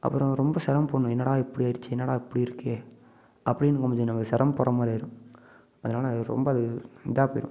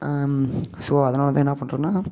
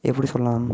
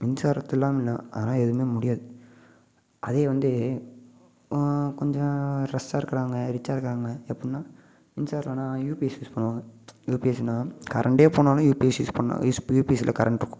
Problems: constant background noise